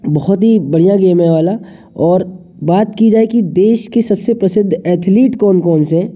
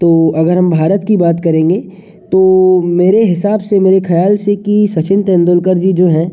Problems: constant background noise, echo